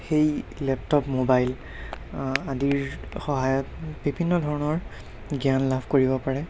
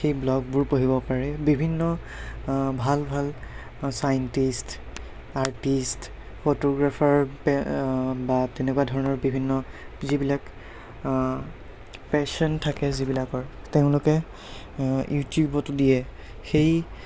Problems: constant background noise